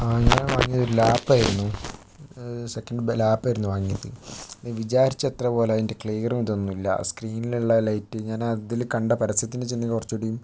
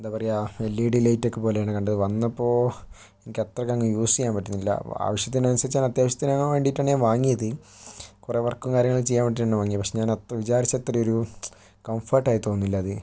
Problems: background sounds at intervals